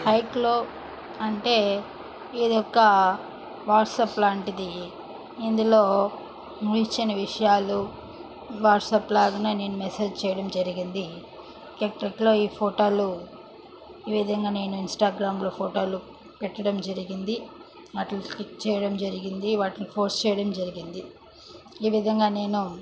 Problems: background sounds at intervals, background conversations at intervals